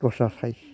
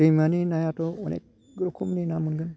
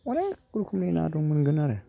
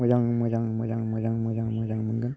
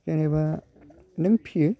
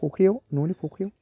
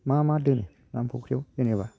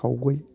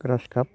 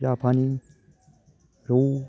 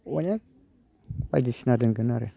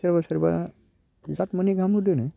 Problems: low volume